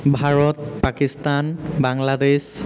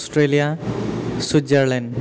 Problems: constant background noise, echo